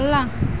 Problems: none marked